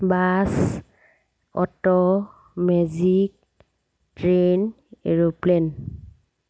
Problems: none marked